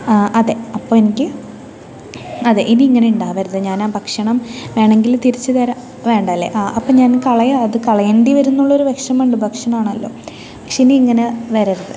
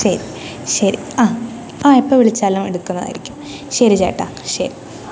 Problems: continuous background conversations